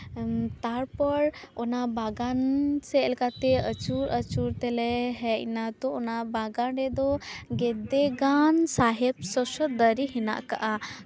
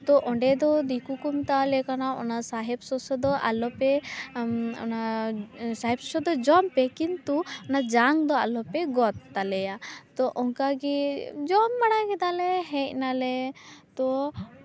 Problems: constant background noise, background conversations at intervals